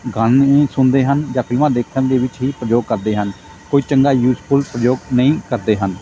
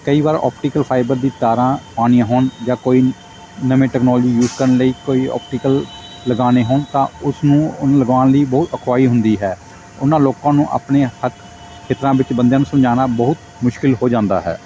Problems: constant background noise